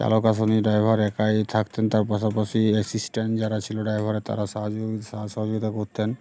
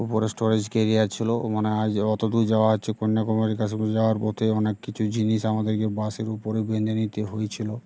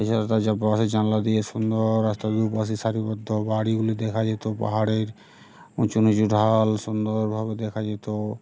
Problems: constant background noise, background conversations at intervals